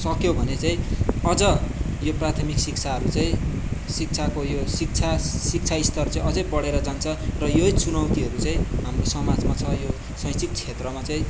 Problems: constant background noise, background conversations at intervals